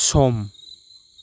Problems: constant background noise